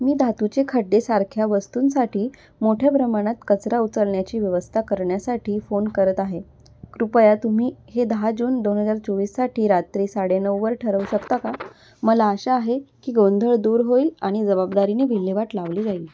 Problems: constant background noise